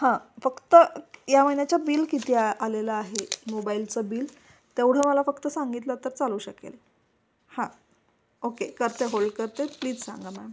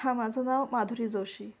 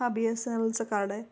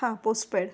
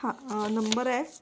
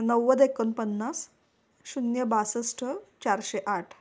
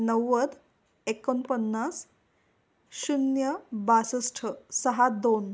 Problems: constant background noise